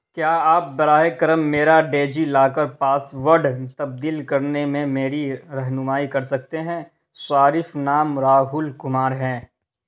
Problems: none marked